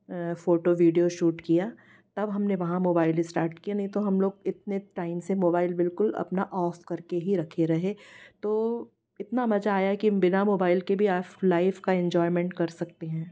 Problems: constant background noise